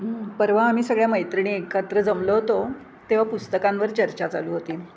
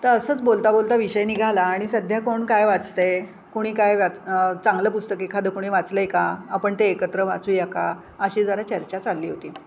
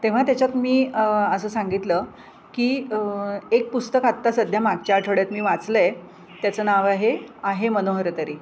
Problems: constant background noise